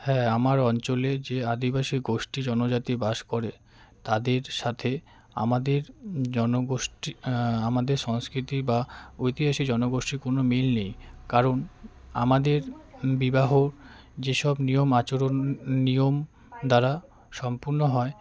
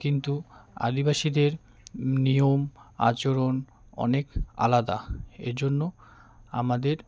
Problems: none marked